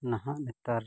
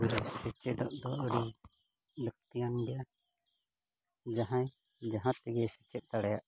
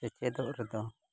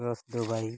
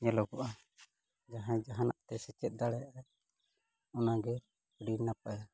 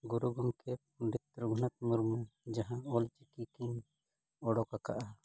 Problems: low volume